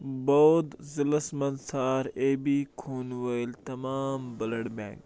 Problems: constant background noise